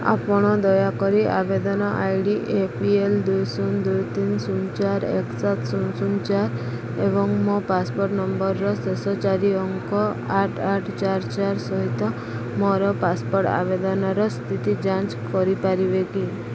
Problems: none marked